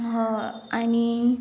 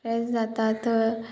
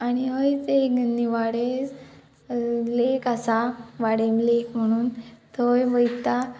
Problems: background sounds at intervals, background conversations at intervals